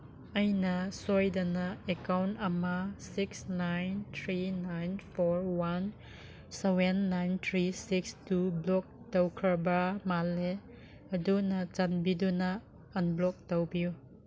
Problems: none marked